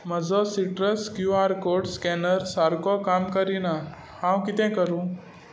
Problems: constant background noise